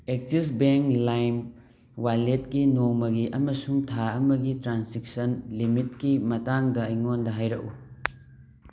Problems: background sounds at intervals